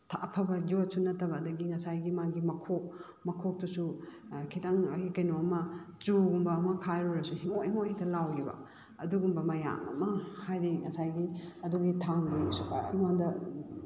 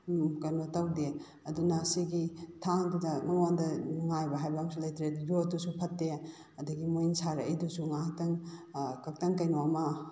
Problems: background sounds at intervals